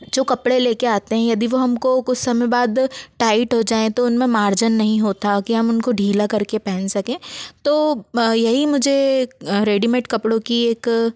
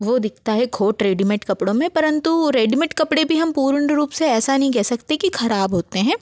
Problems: none marked